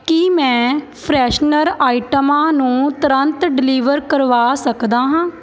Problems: constant background noise, background conversations at intervals